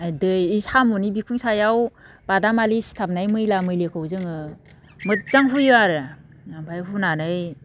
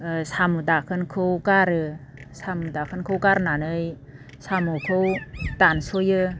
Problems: low volume